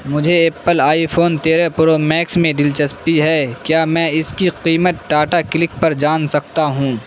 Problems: constant background noise